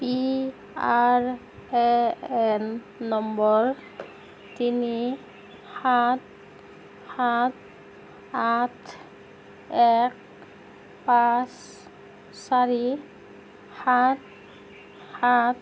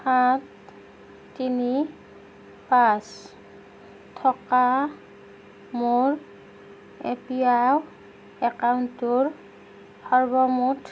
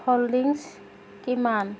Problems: background conversations at intervals